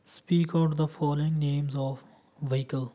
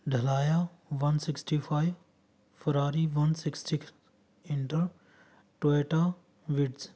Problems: none marked